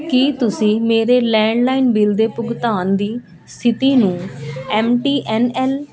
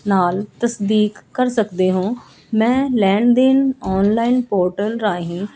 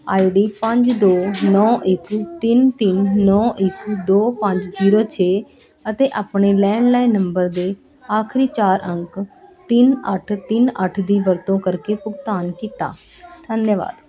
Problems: constant background noise, continuous background conversations